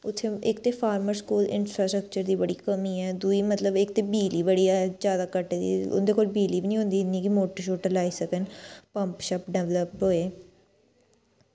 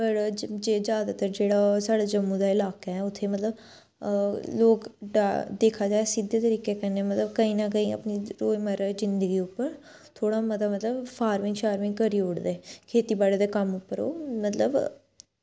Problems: none marked